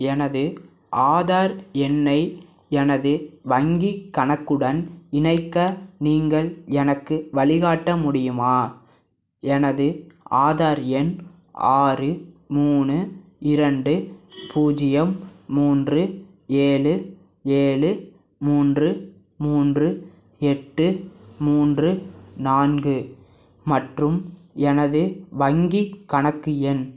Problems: none marked